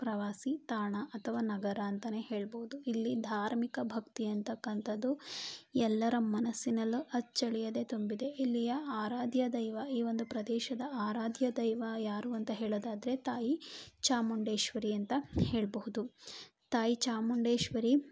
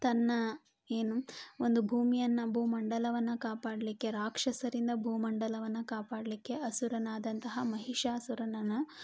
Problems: none marked